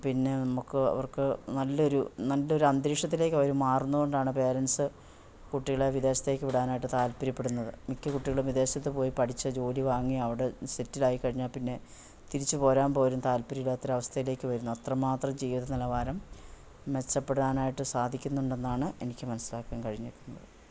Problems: none marked